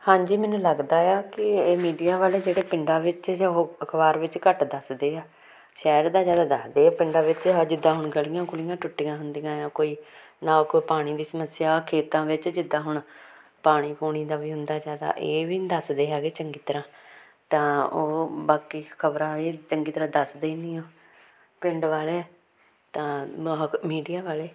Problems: background conversations at intervals